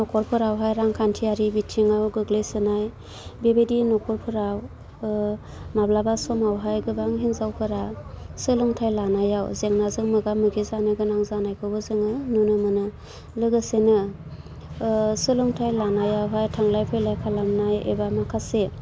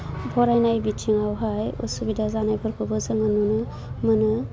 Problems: low volume